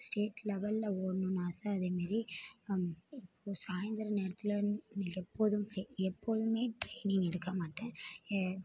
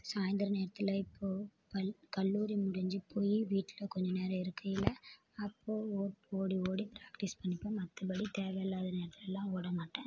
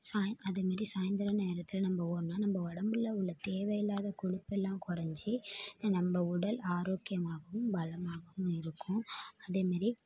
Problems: background sounds at intervals